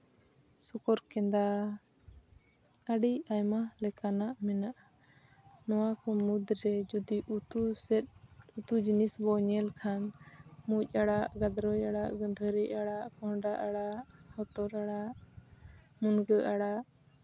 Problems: none marked